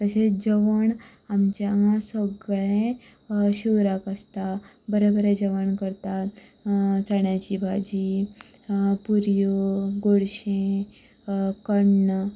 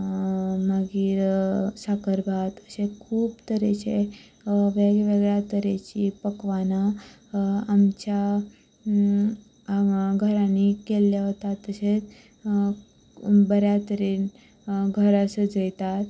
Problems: none marked